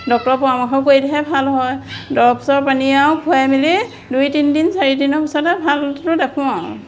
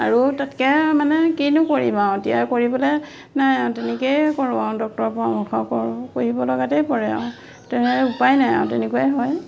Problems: none marked